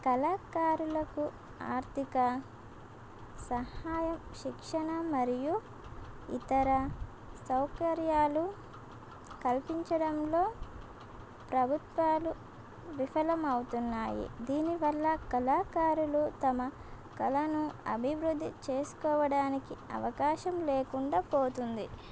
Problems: constant background noise